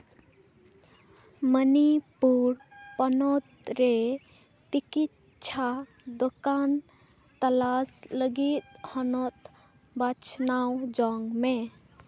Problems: none marked